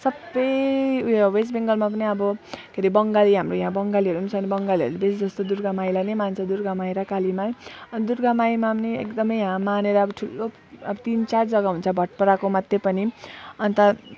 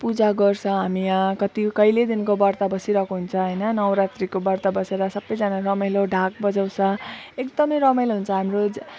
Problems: none marked